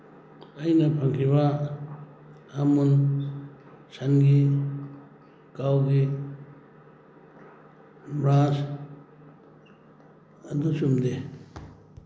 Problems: background sounds at intervals